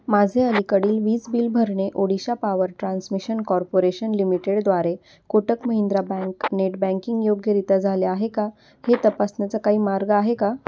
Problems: constant background noise